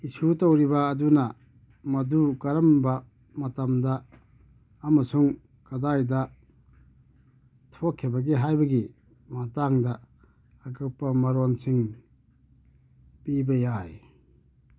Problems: none marked